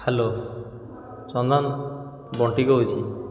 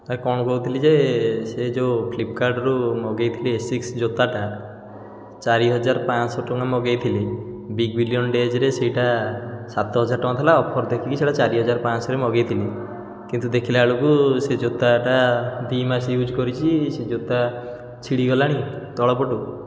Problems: background sounds at intervals